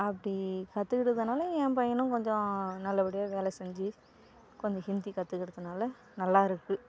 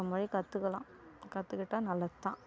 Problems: background sounds at intervals